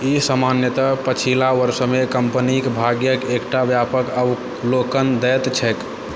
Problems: constant background noise